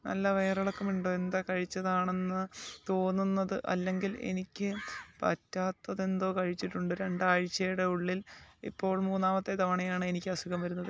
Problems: background sounds at intervals, low volume